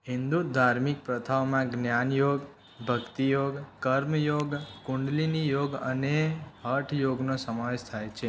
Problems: constant background noise